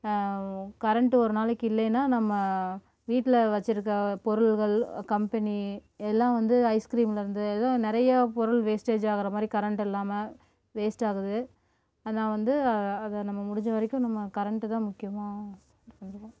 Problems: background sounds at intervals